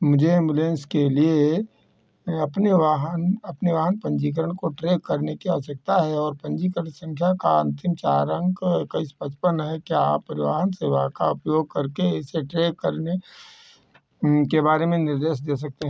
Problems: none marked